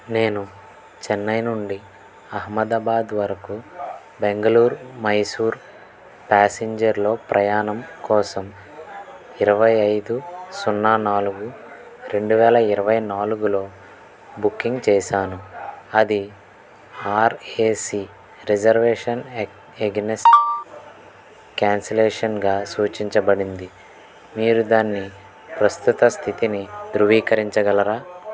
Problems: background sounds at intervals, continuous background conversations